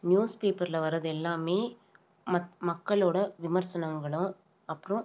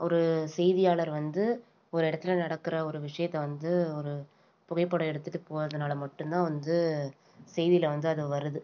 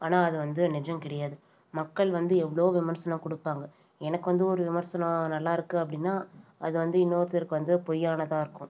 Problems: none marked